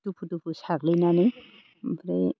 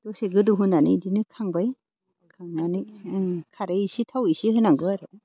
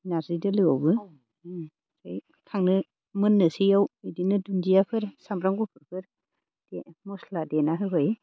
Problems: none marked